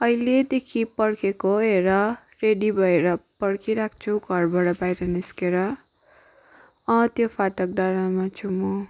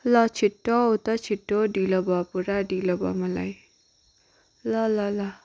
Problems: background sounds at intervals